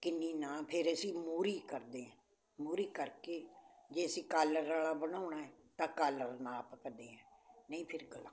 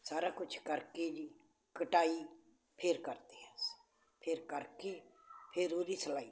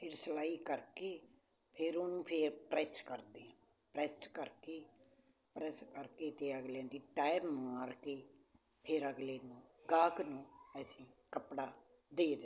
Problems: constant background noise